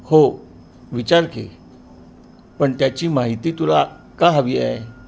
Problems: background sounds at intervals